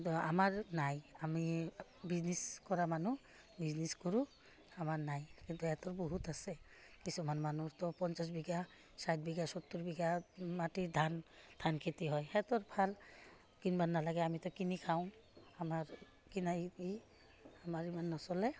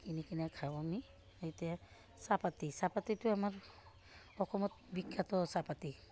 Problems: none marked